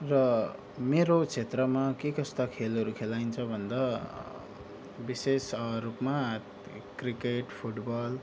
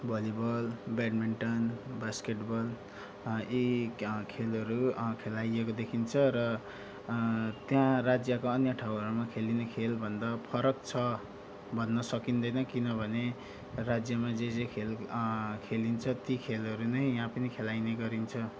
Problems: background sounds at intervals